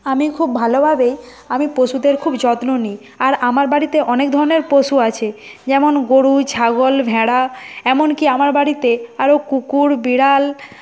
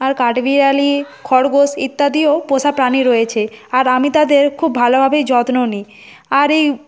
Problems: constant background noise, background conversations at intervals